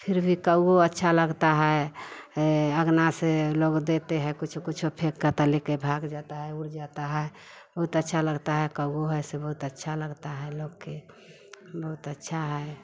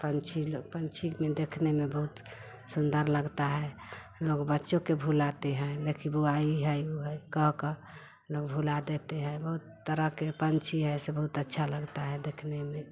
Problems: none marked